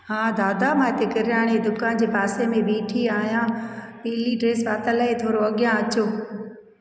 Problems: echo